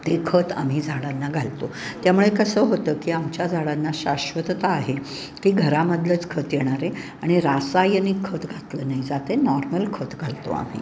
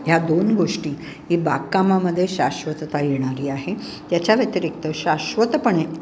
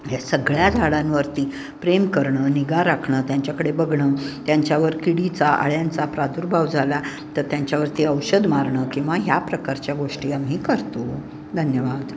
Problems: constant background noise